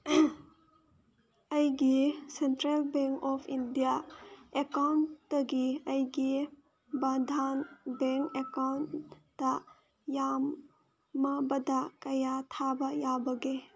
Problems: background sounds at intervals